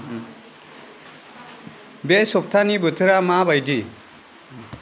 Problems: constant background noise